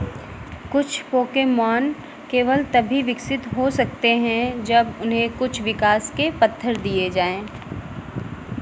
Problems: echo